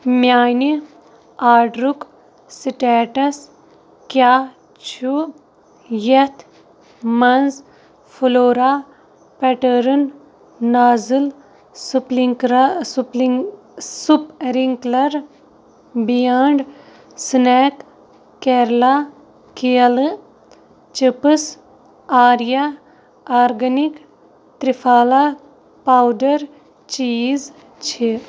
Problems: none marked